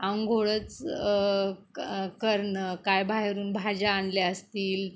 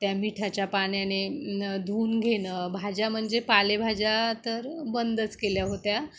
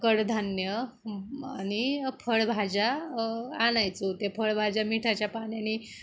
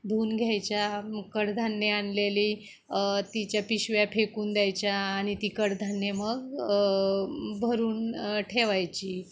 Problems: background sounds at intervals